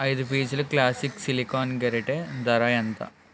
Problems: none marked